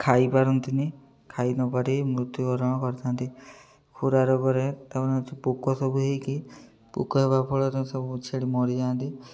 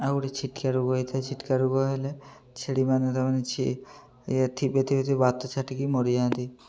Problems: low volume